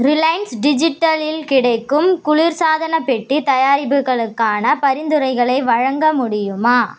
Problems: constant background noise